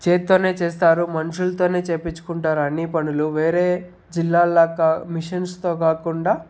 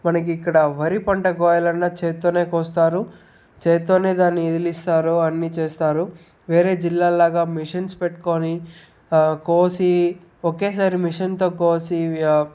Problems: background sounds at intervals